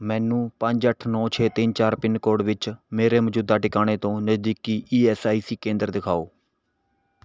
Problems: none marked